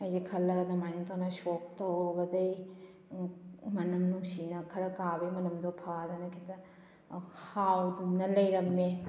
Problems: background sounds at intervals